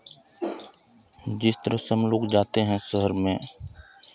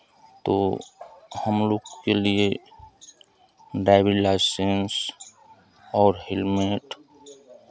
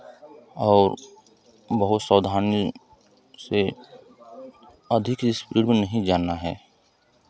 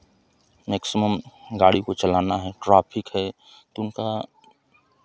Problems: none marked